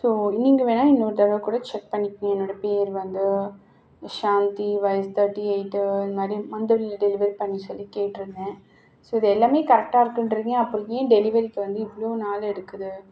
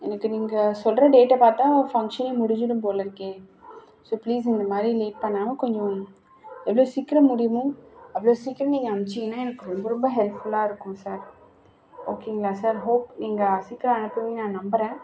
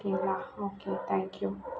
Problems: none marked